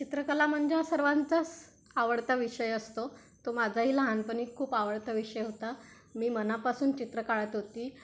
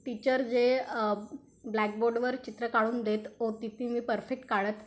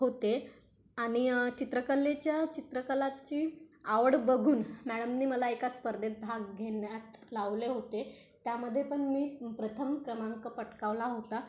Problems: none marked